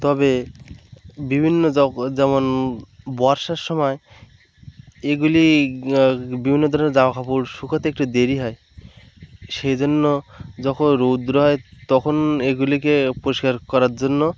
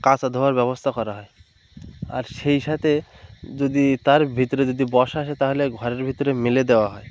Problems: constant background noise, background conversations at intervals